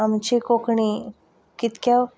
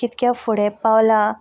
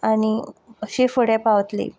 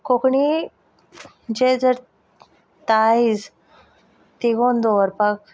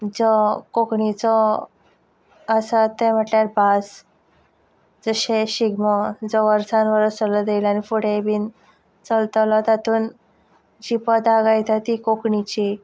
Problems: background sounds at intervals